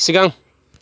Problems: none marked